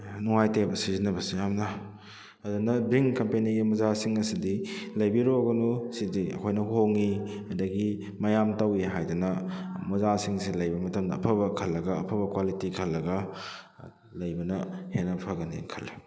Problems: background sounds at intervals